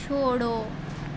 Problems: constant background noise